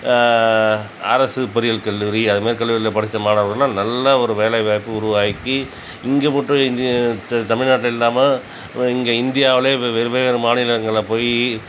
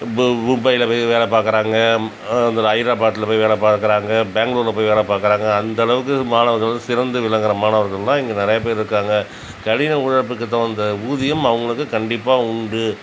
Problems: constant background noise